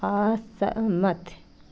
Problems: constant background noise